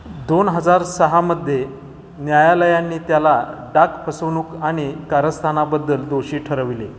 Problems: none marked